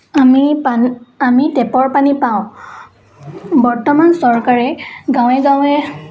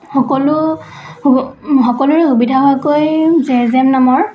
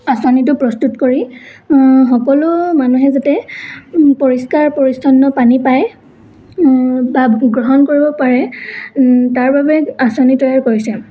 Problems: background sounds at intervals, background conversations at intervals